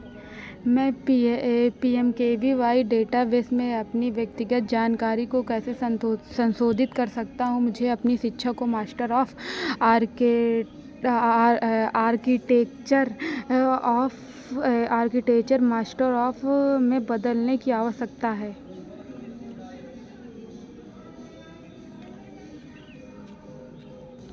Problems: none marked